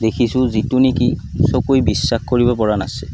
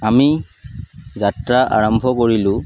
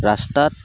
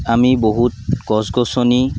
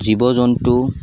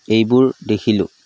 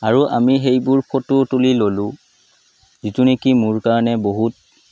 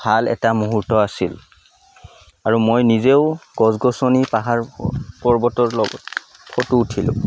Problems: none marked